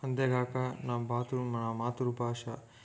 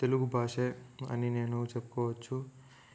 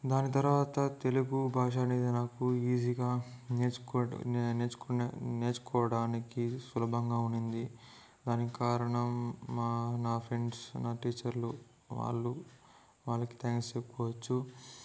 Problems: low volume